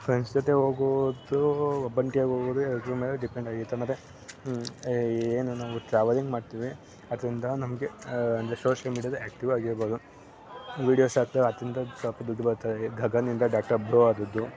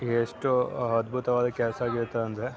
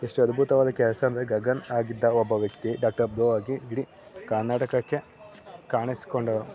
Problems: background sounds at intervals